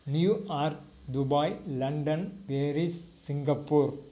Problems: none marked